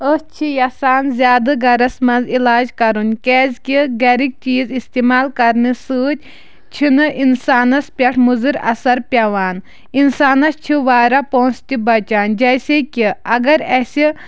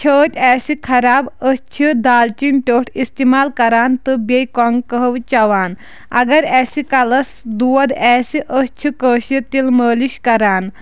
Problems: none marked